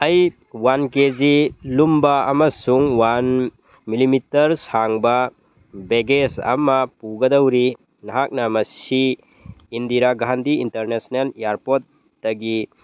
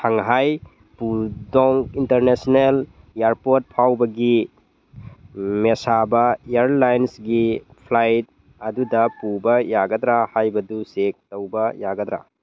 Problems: none marked